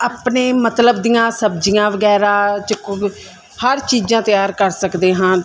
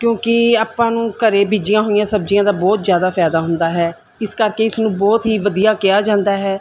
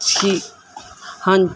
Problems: background sounds at intervals